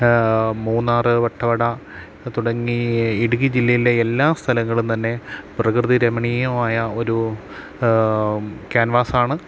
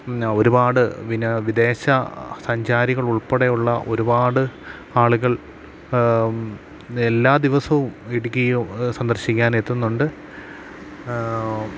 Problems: constant background noise